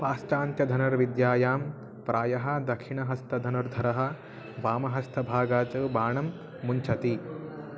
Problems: background sounds at intervals